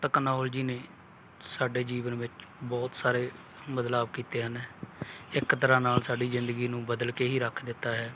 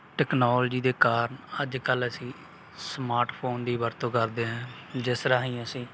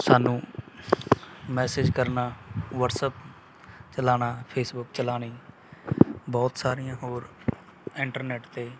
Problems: none marked